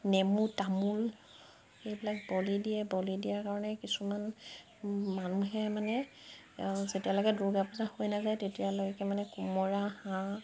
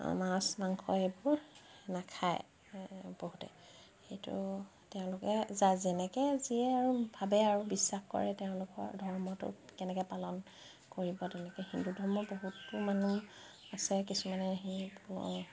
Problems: background sounds at intervals